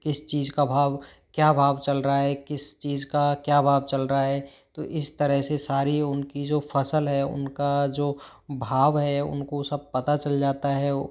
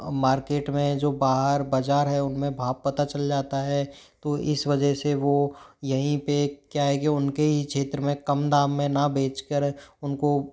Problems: background sounds at intervals